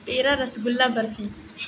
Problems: constant background noise